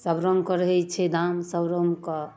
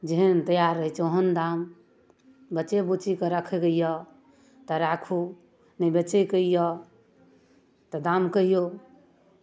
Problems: none marked